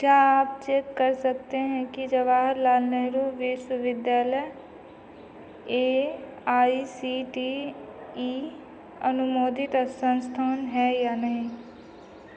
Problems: none marked